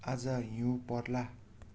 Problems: none marked